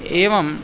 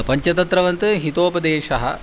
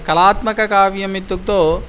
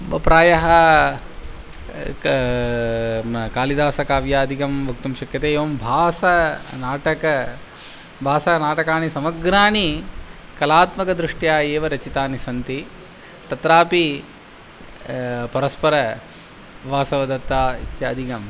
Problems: constant background noise